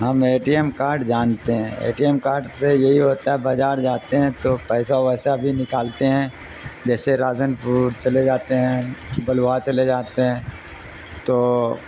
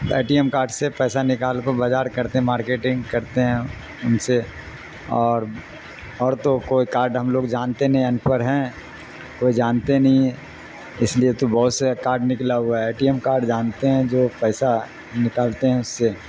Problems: constant background noise